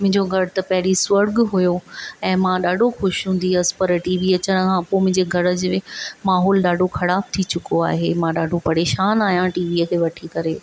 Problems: constant background noise